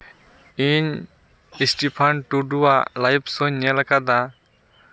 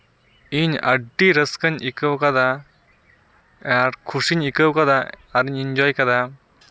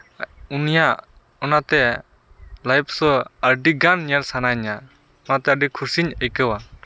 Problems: none marked